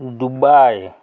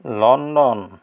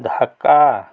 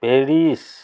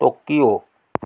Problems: none marked